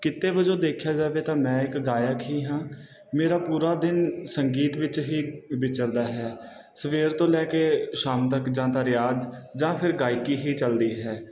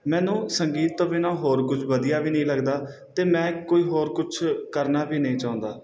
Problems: background sounds at intervals